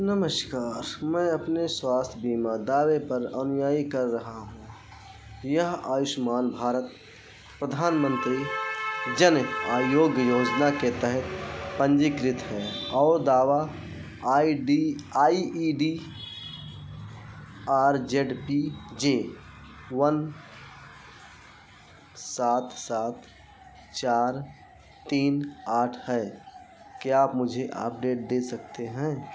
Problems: constant background noise